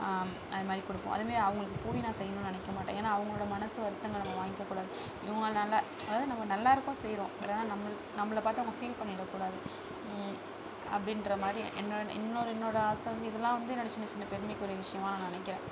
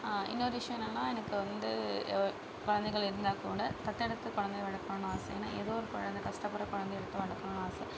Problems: background sounds at intervals, low volume